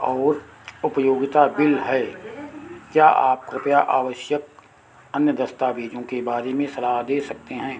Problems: constant background noise